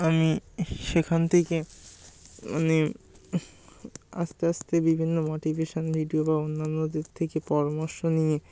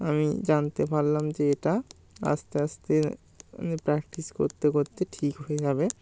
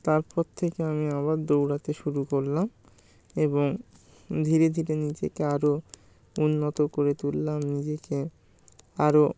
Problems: background sounds at intervals